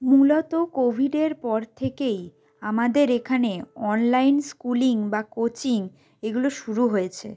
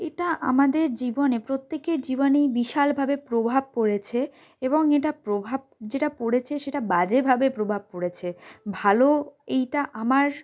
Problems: none marked